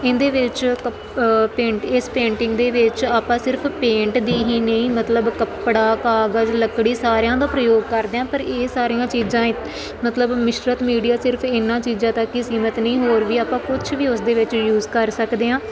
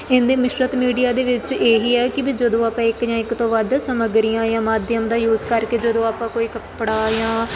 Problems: constant background noise